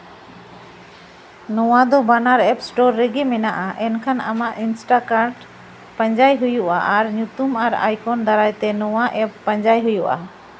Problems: none marked